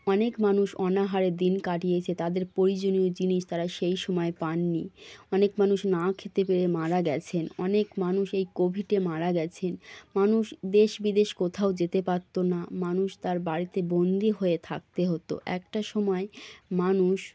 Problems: none marked